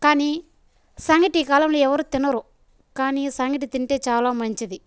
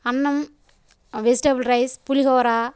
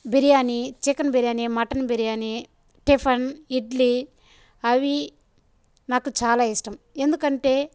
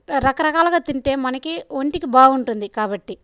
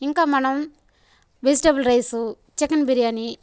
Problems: background sounds at intervals